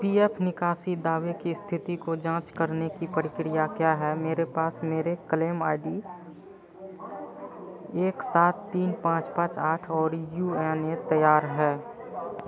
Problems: constant background noise, low volume